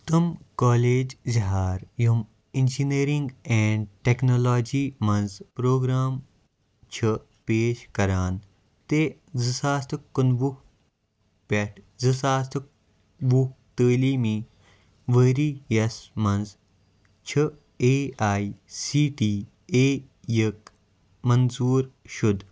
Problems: background sounds at intervals